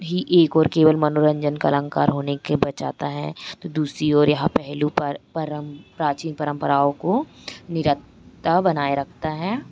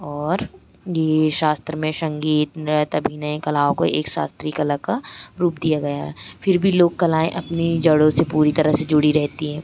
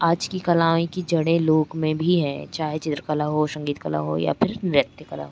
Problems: constant background noise